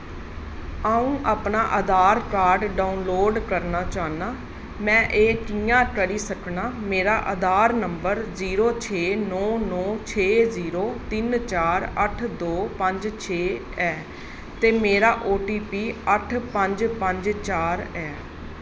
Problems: constant background noise